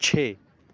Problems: constant background noise